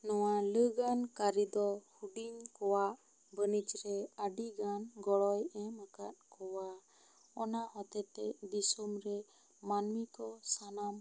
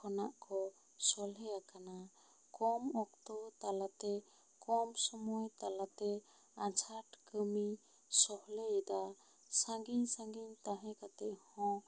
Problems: low volume